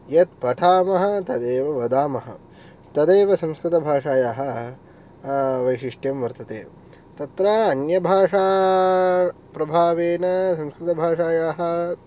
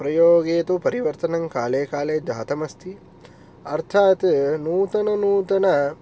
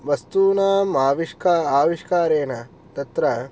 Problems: none marked